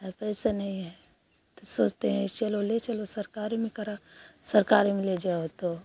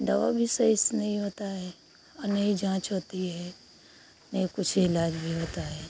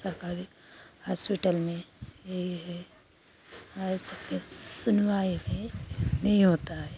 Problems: constant background noise